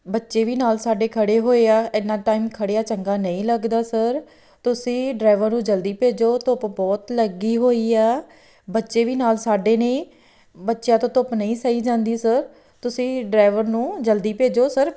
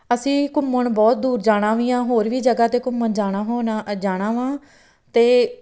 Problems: background sounds at intervals